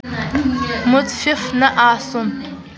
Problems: none marked